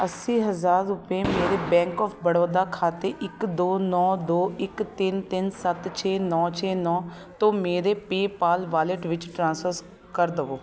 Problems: background sounds at intervals, continuous background conversations